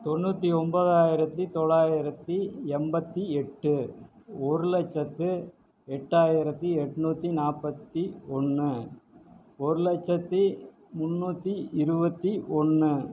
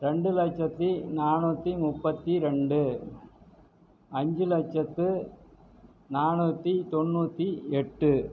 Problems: none marked